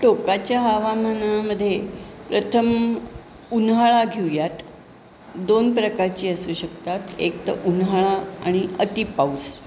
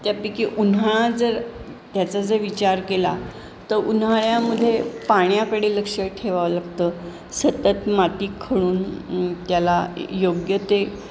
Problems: none marked